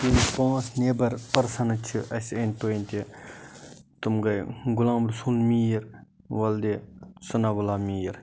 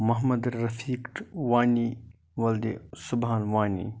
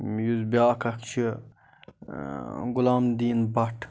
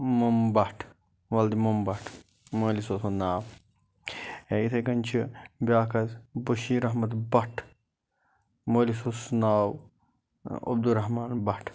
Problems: none marked